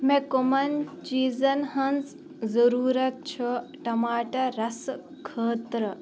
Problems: background sounds at intervals, background conversations at intervals